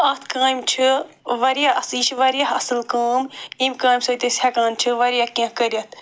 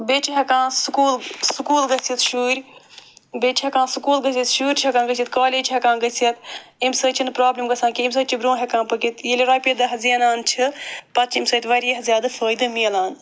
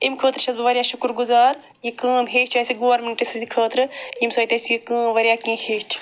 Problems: none marked